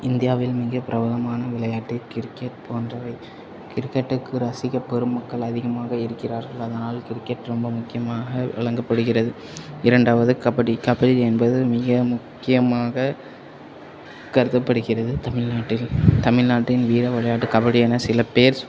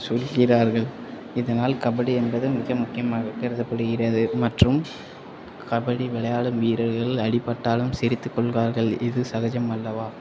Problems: constant background noise, low volume